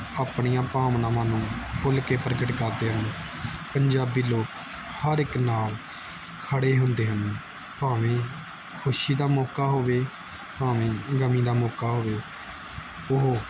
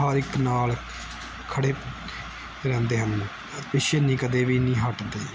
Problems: none marked